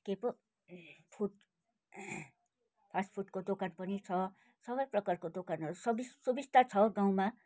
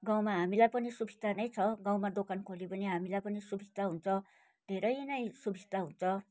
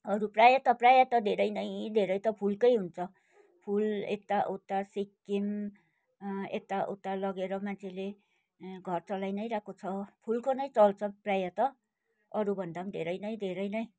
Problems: none marked